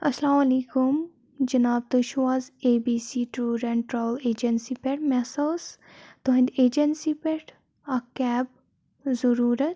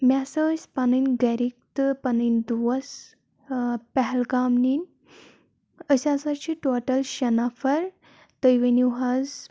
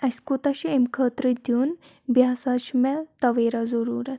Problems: background sounds at intervals